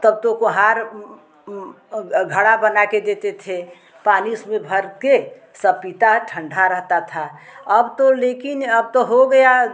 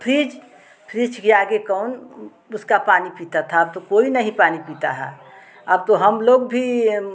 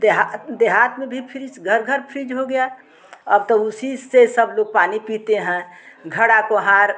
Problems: background sounds at intervals, background conversations at intervals